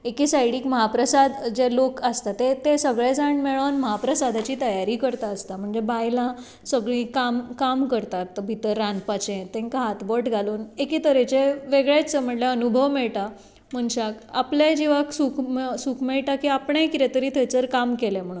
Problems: background sounds at intervals